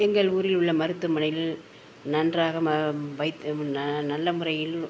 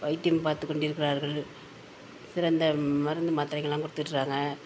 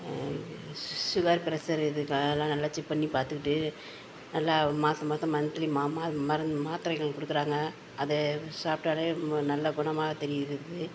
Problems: none marked